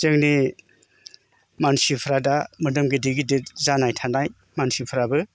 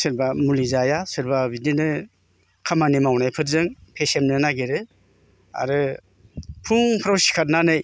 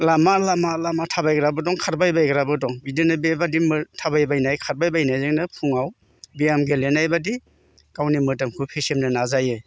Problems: constant background noise